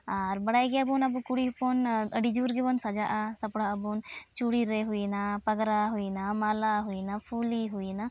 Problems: none marked